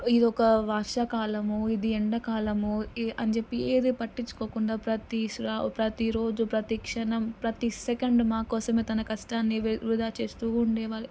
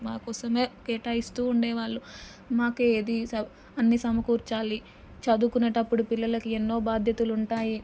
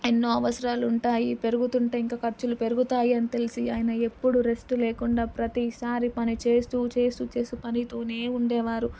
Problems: none marked